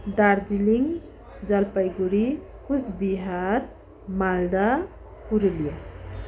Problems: constant background noise